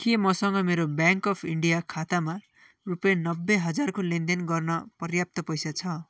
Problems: background sounds at intervals